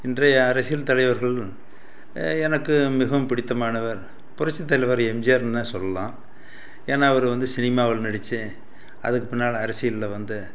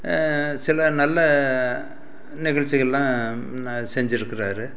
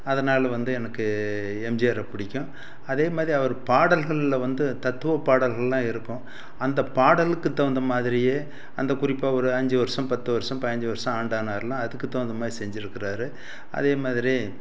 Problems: constant background noise